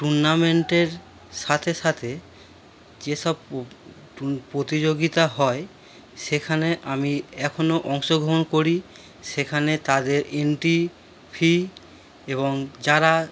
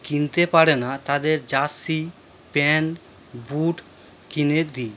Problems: background sounds at intervals